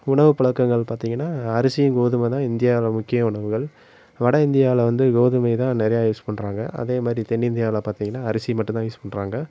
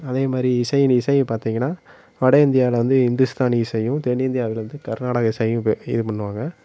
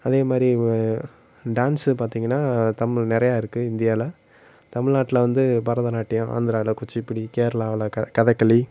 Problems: constant background noise, low volume